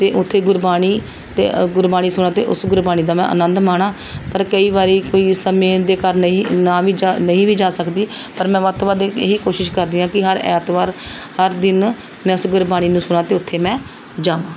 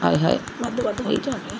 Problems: background sounds at intervals, background conversations at intervals